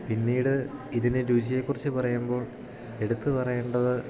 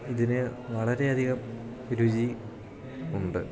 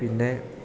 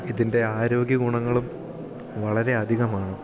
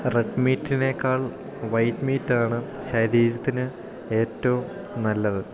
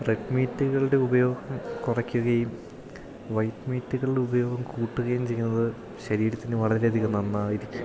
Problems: none marked